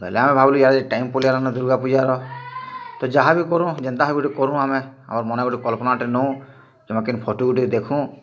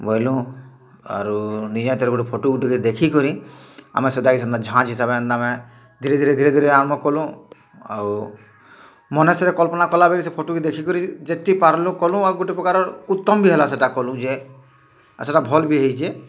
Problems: none marked